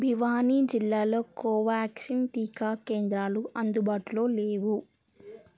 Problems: background sounds at intervals